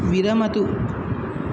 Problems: constant background noise